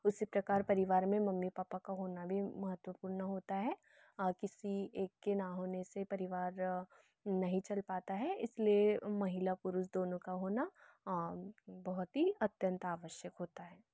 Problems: none marked